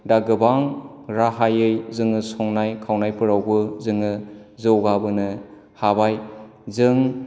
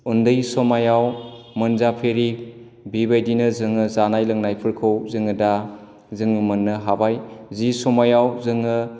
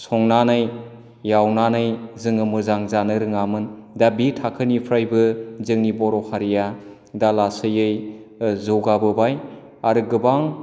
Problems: none marked